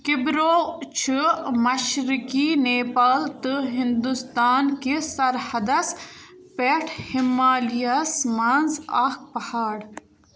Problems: background sounds at intervals